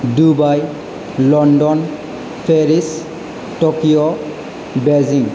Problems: low volume